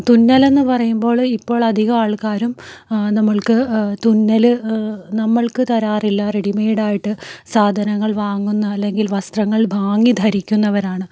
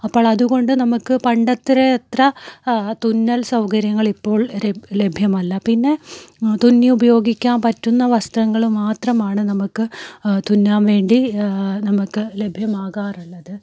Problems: none marked